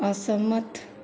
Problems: constant background noise, echo